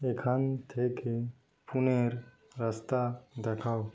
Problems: none marked